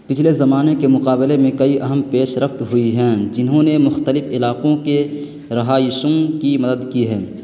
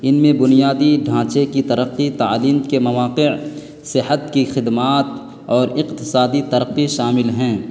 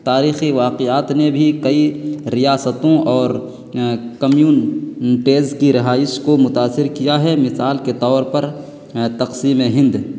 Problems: constant background noise